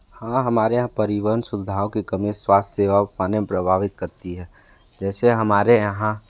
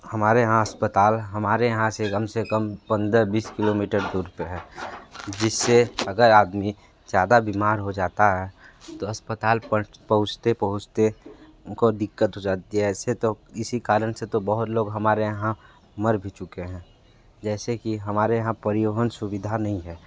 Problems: constant background noise